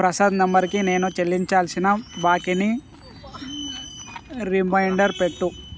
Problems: background sounds at intervals